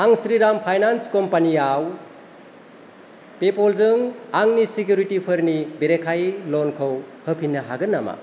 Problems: constant background noise